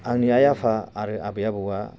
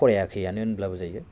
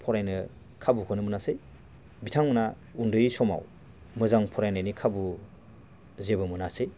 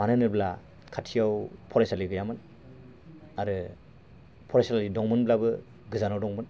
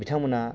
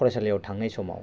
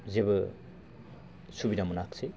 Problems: constant background noise